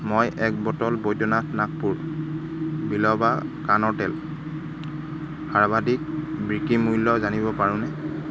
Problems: constant background noise